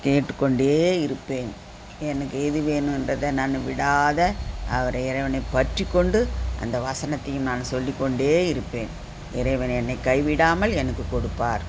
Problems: constant background noise